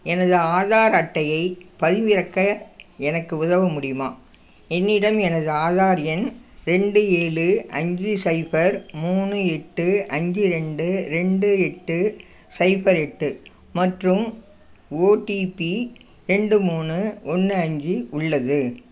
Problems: none marked